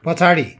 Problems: continuous background conversations